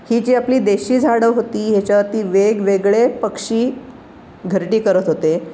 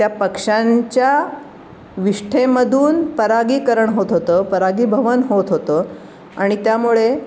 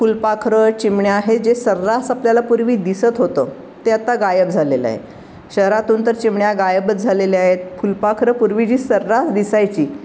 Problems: constant background noise